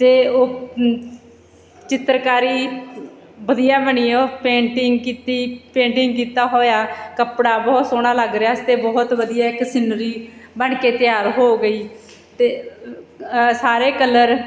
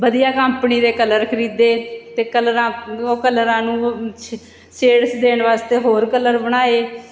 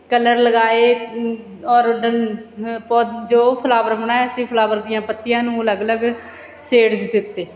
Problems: background sounds at intervals